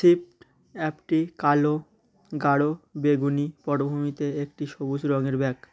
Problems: none marked